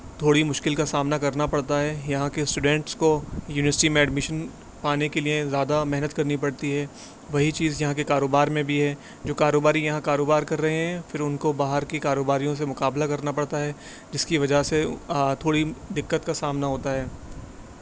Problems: constant background noise